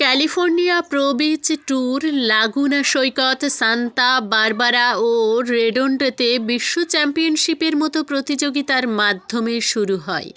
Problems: continuous background conversations